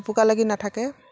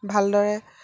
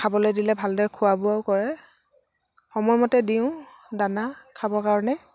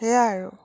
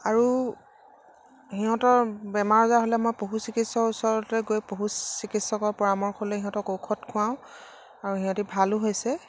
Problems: none marked